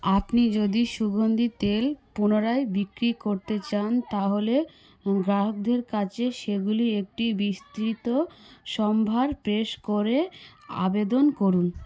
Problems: background conversations at intervals